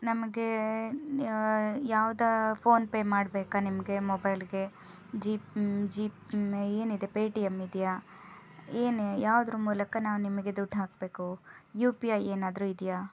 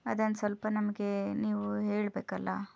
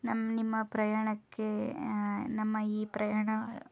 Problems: background sounds at intervals